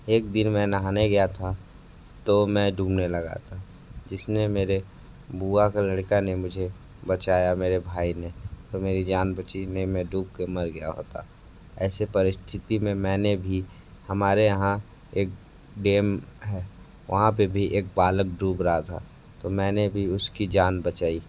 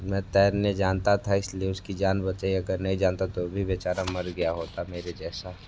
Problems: constant background noise